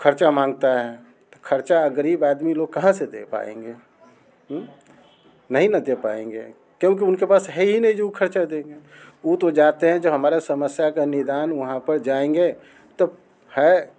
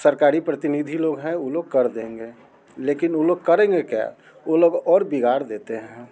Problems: constant background noise